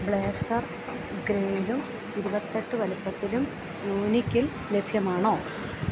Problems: constant background noise, low volume